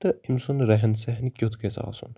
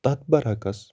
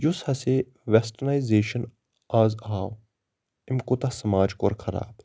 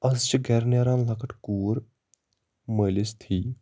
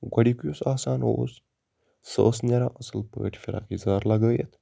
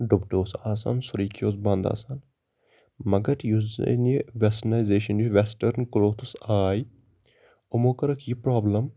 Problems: constant background noise